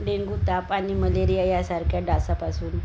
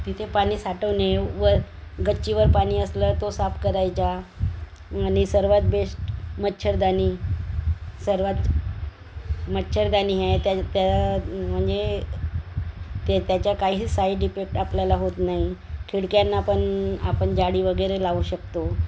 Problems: none marked